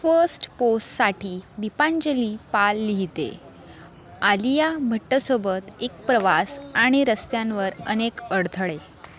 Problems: background sounds at intervals, background conversations at intervals